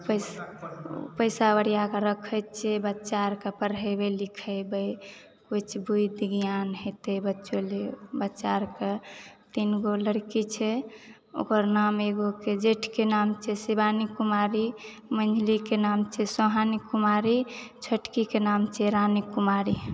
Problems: background sounds at intervals